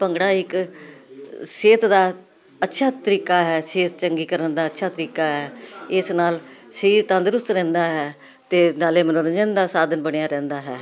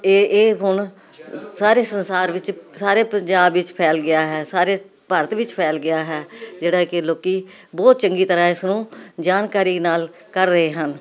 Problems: continuous background conversations